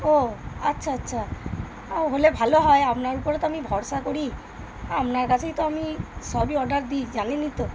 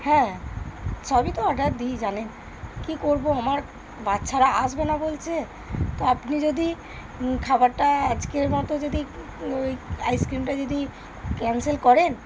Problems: constant background noise, background conversations at intervals